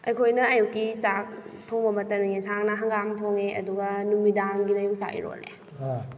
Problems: background conversations at intervals